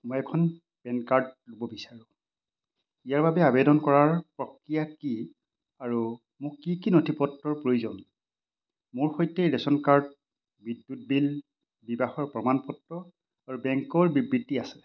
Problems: constant background noise